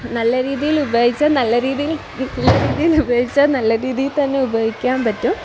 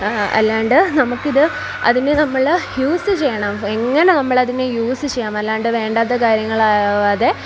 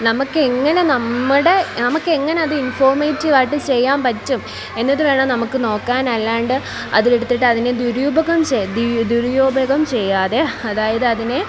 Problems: constant background noise, background conversations at intervals